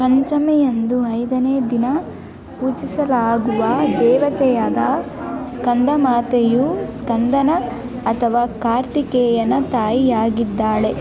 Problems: background sounds at intervals